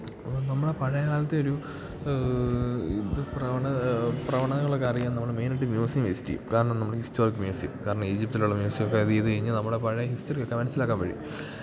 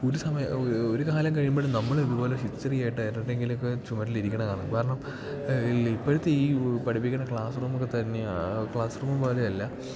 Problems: constant background noise